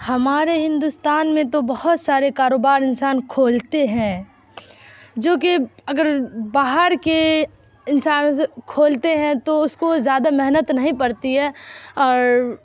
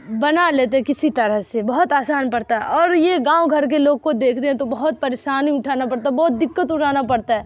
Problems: background sounds at intervals